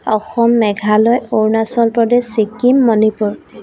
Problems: constant background noise